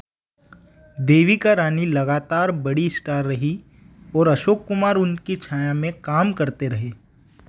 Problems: none marked